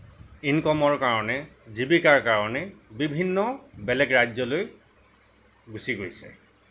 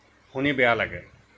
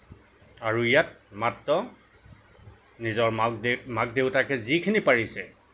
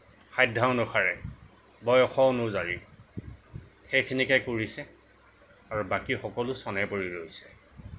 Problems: none marked